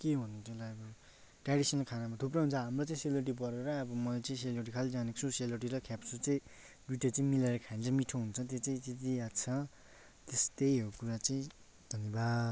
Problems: constant background noise